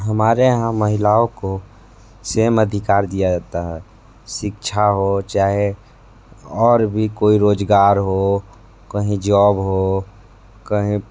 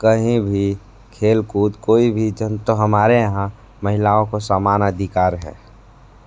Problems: constant background noise